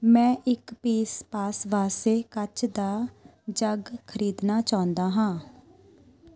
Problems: background conversations at intervals